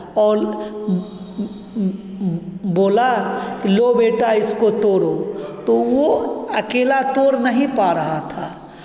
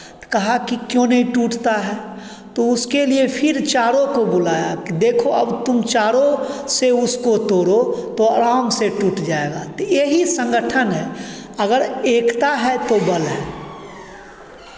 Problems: background sounds at intervals